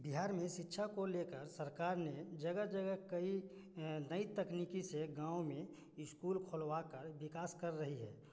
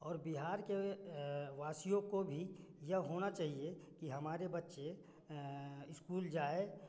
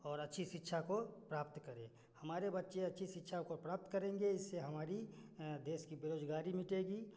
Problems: constant background noise